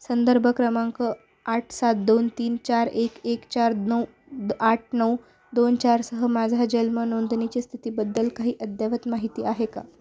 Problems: none marked